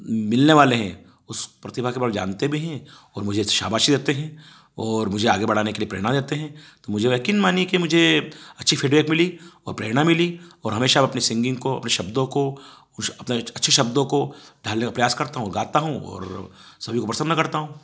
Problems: background sounds at intervals